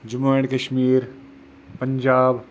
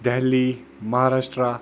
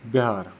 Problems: constant background noise